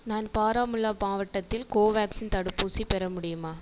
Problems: echo